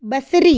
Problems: none marked